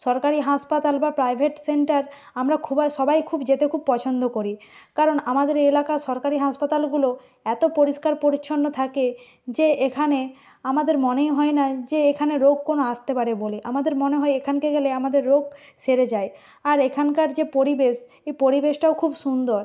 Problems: background sounds at intervals